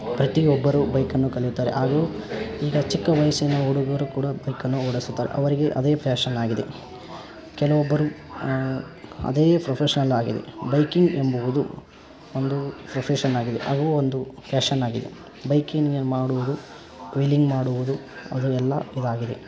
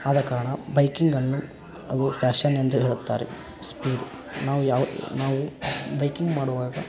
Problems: constant background noise